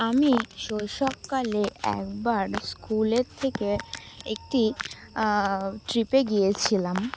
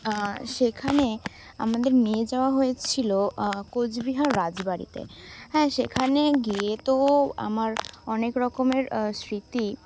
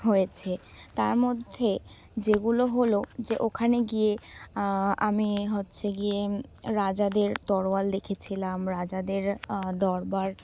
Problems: background sounds at intervals